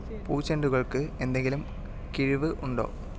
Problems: background conversations at intervals